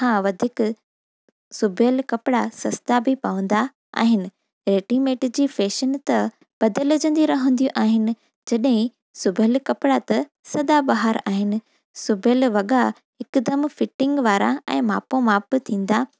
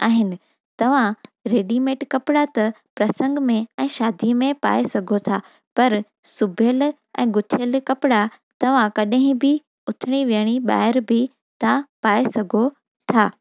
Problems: none marked